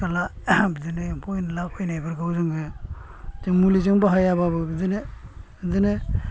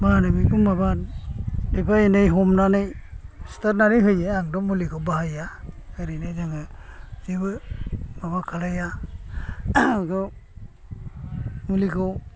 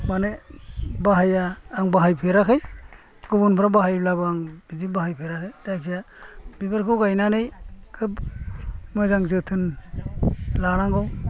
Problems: low volume